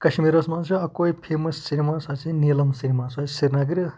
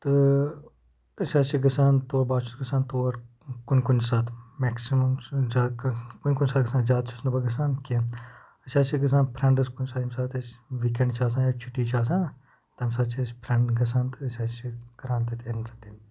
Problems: background sounds at intervals